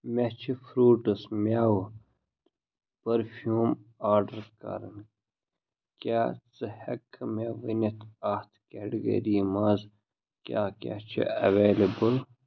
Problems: none marked